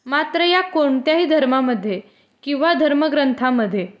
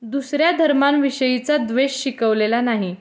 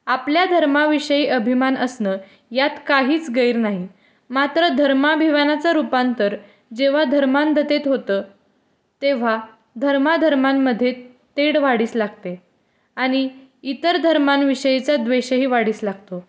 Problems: background sounds at intervals